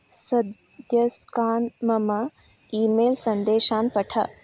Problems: none marked